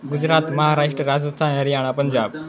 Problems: background conversations at intervals